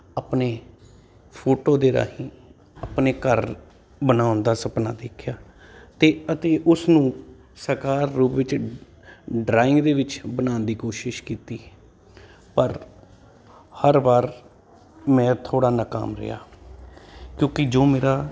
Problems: constant background noise